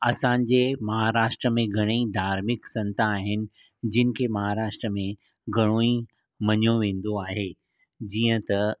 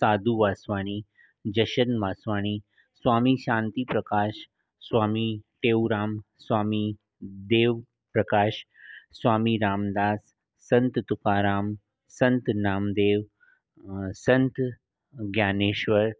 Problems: none marked